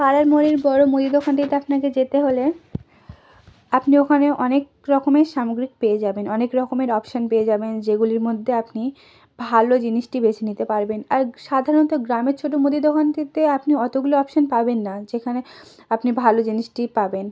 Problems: none marked